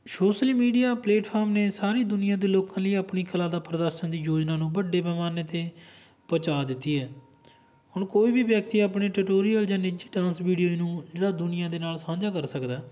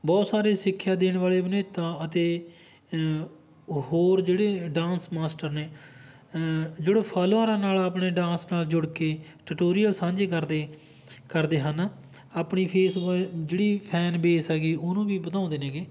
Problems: none marked